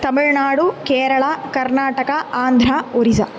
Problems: none marked